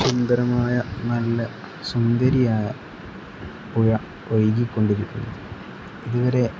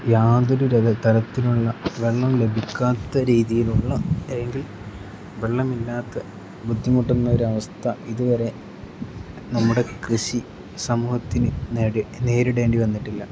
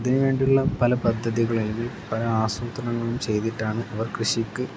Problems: background sounds at intervals